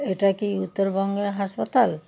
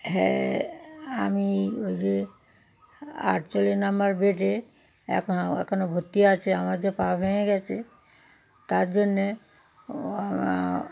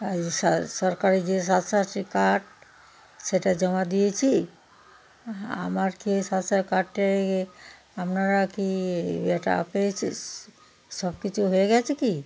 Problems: constant background noise, background conversations at intervals